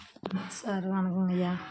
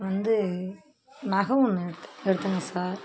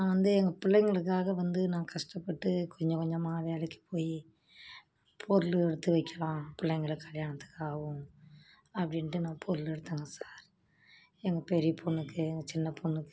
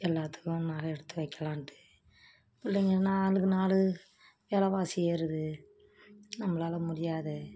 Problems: constant background noise